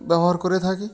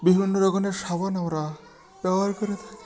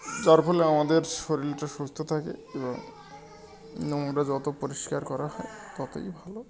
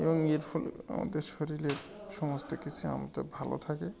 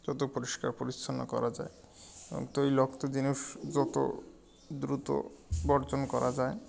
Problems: constant background noise, continuous background conversations